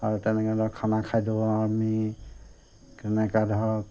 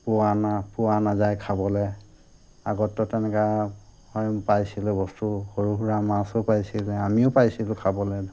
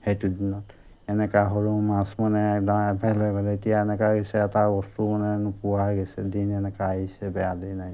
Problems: constant background noise